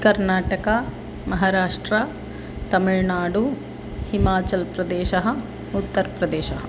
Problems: constant background noise